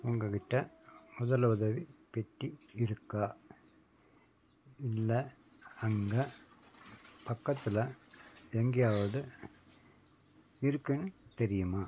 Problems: constant background noise